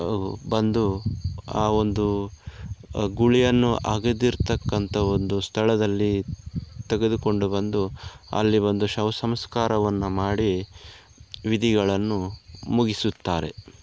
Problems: none marked